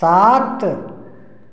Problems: echo